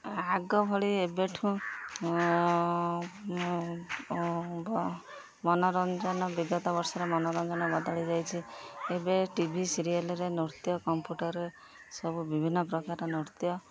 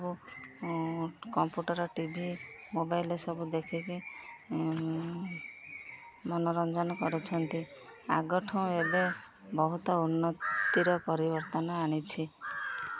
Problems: none marked